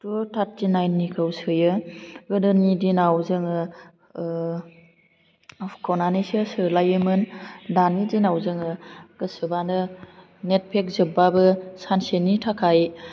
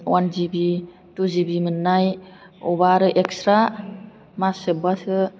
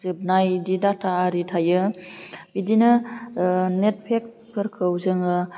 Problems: low volume